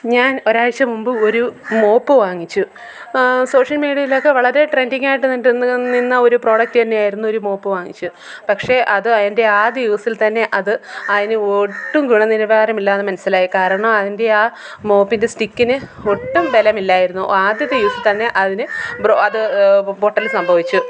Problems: background conversations at intervals